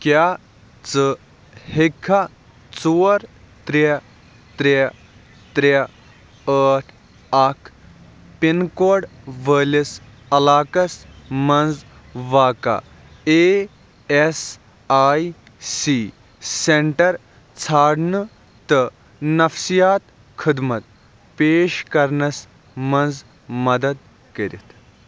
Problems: constant background noise